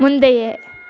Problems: none marked